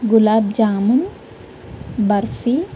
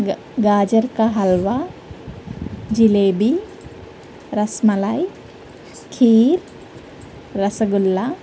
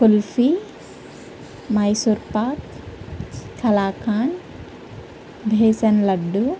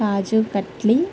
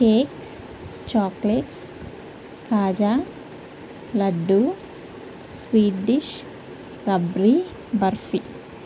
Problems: none marked